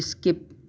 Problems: constant background noise